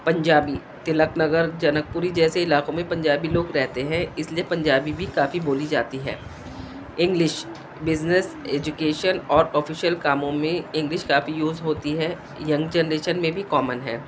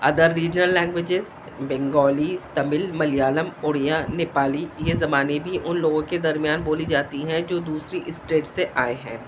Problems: constant background noise